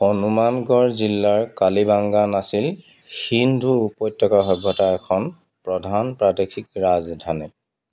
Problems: none marked